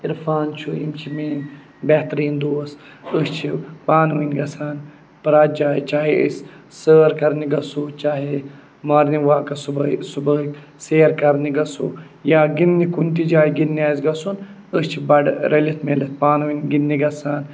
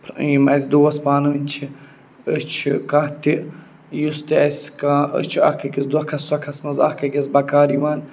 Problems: none marked